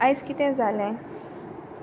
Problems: constant background noise